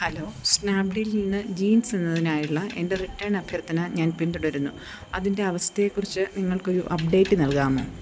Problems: background sounds at intervals